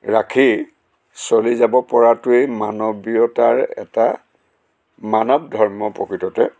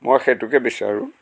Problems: constant background noise